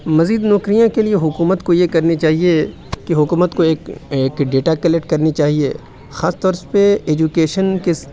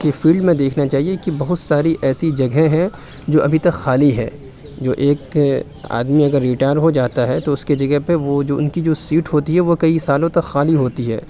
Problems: none marked